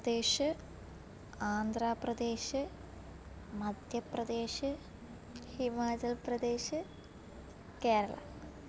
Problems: low volume